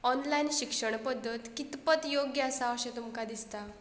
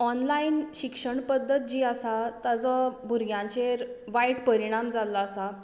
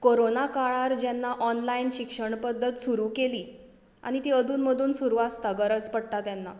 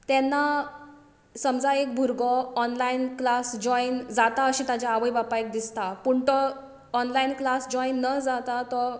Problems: background sounds at intervals